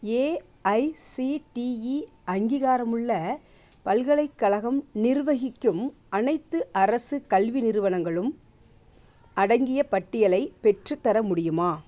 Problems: none marked